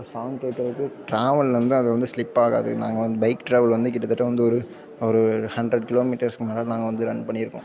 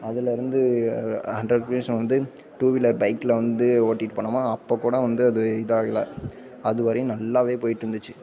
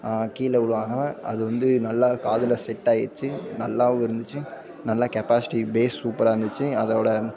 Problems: background sounds at intervals, background conversations at intervals